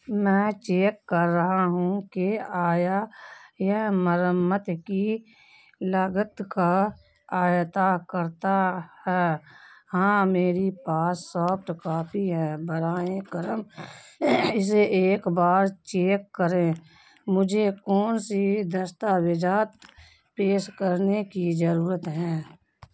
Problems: none marked